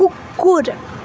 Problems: constant background noise